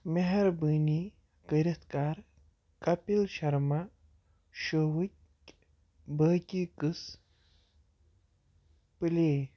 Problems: none marked